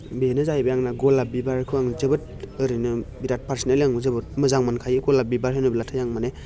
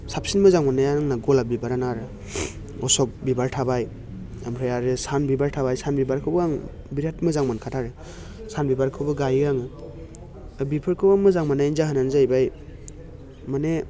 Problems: none marked